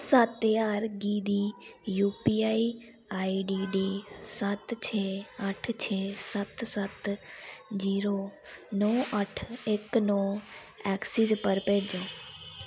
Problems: constant background noise